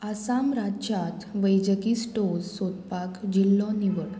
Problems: constant background noise